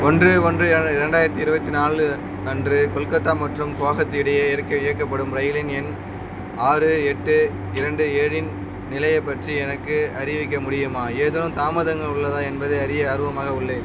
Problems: constant background noise